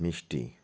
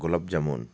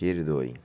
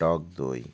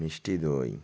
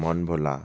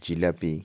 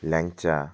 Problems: constant background noise